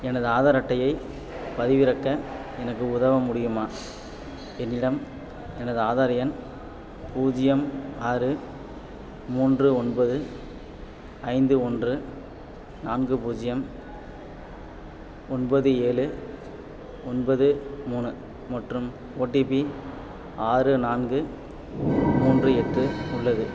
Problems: background sounds at intervals